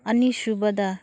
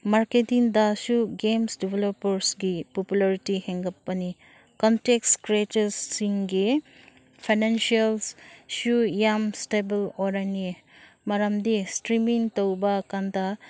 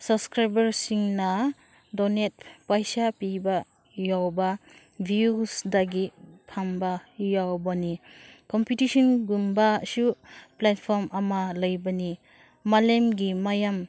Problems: none marked